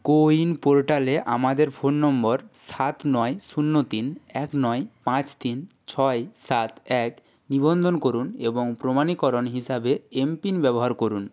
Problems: none marked